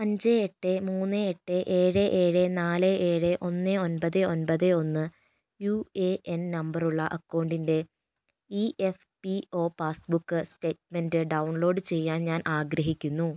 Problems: none marked